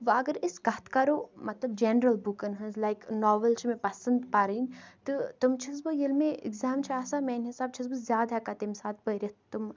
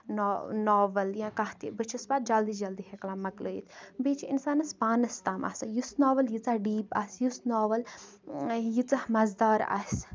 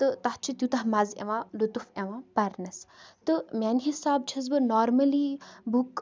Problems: background sounds at intervals